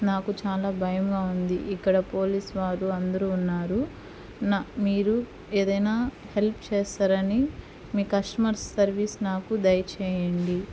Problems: constant background noise